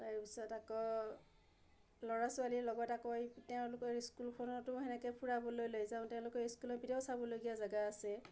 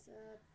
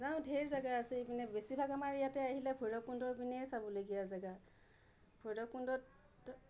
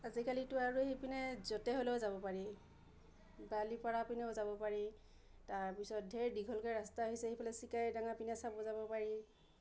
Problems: low volume